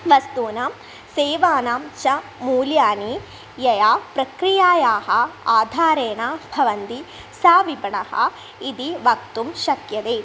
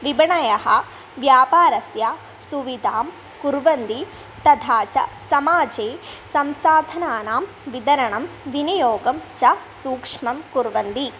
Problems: none marked